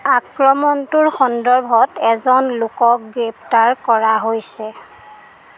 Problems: none marked